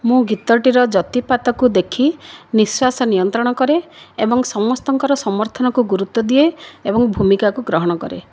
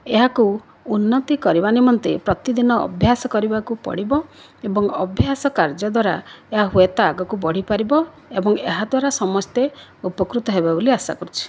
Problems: none marked